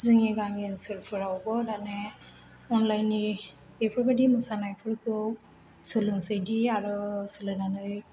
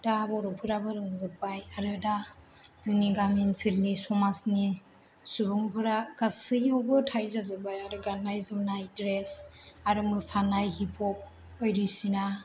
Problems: none marked